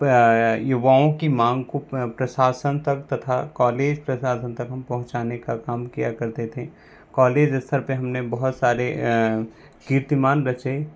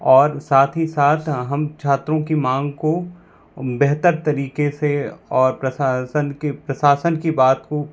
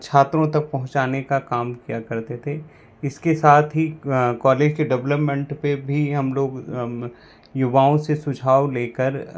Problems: constant background noise